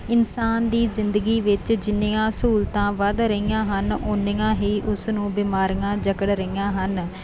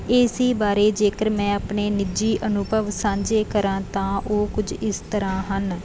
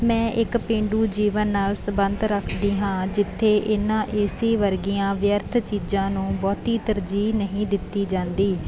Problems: background sounds at intervals